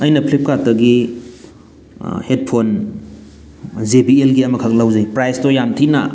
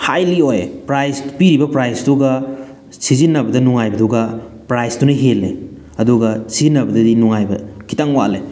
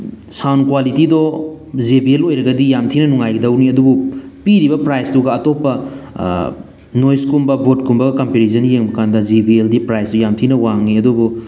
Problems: none marked